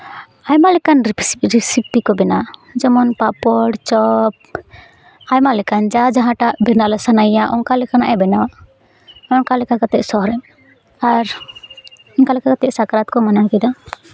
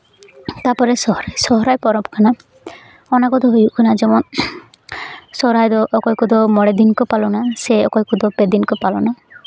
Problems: background sounds at intervals